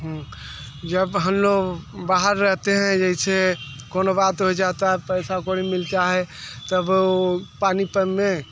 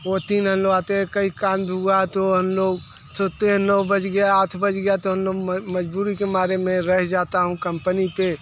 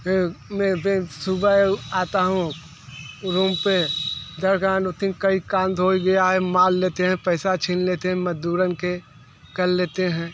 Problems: constant background noise